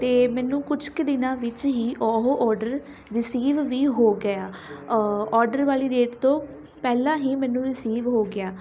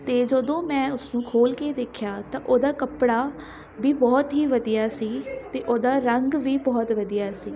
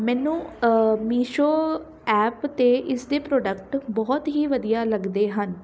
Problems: none marked